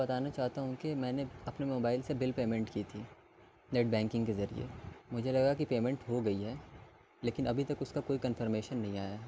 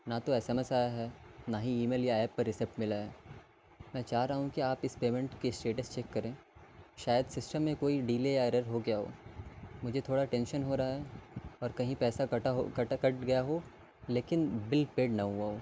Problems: constant background noise